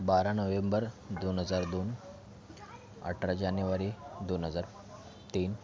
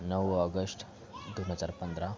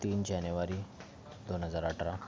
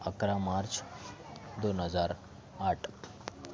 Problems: none marked